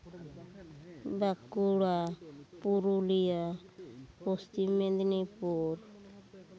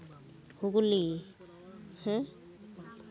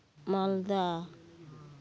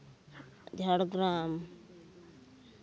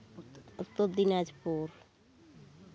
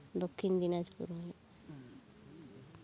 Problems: constant background noise, background conversations at intervals